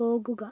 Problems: low volume